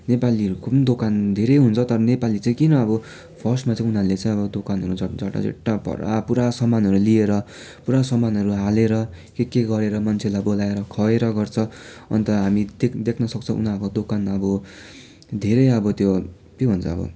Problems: constant background noise